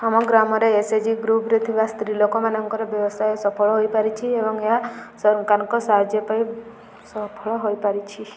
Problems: background sounds at intervals